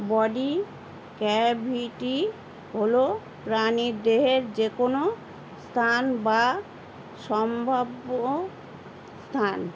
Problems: constant background noise